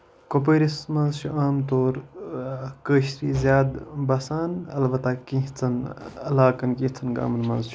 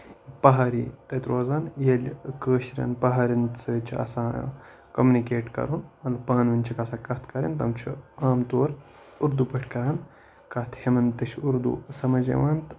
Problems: none marked